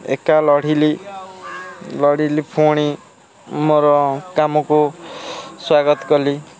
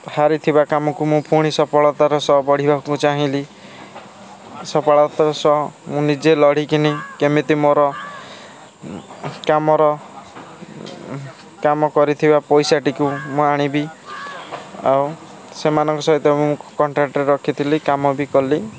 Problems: constant background noise, continuous background conversations